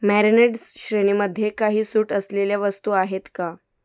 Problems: background sounds at intervals